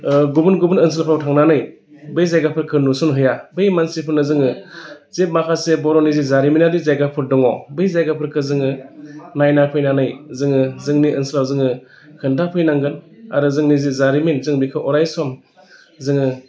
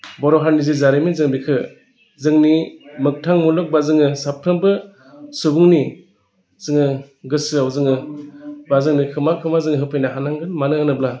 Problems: none marked